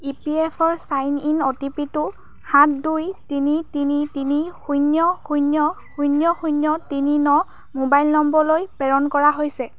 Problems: background sounds at intervals